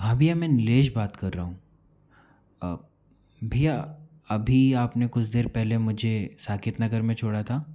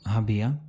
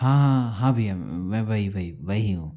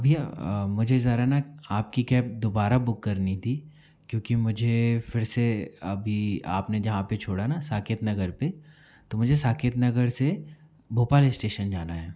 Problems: background sounds at intervals